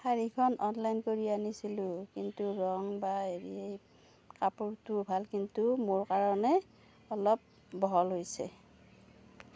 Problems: none marked